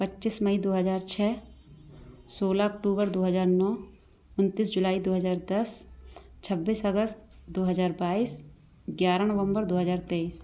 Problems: none marked